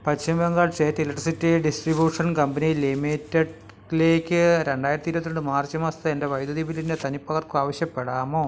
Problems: none marked